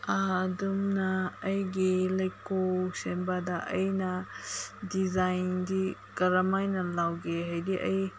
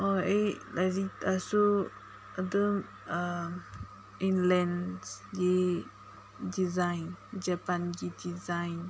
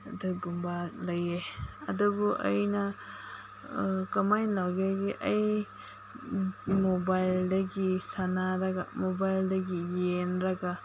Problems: constant background noise